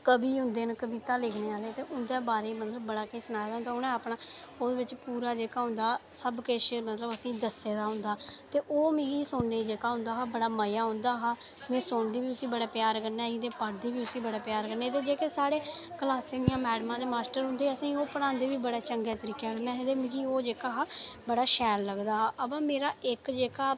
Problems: none marked